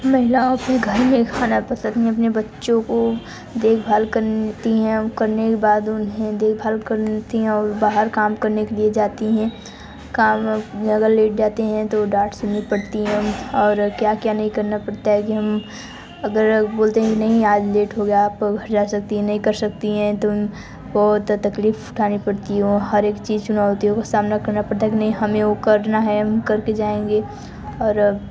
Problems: constant background noise